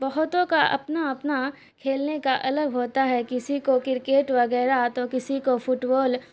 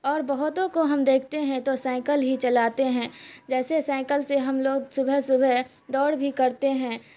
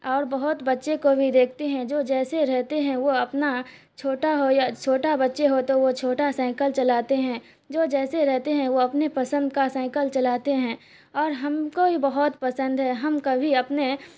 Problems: constant background noise